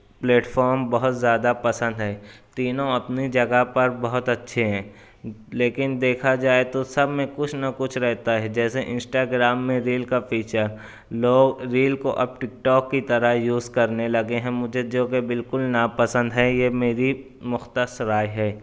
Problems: none marked